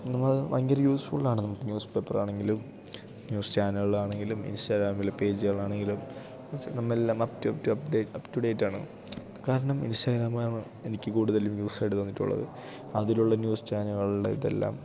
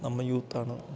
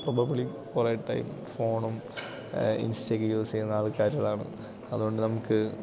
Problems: none marked